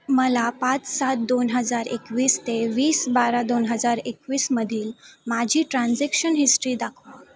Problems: background sounds at intervals